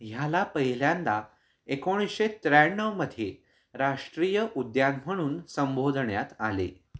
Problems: background sounds at intervals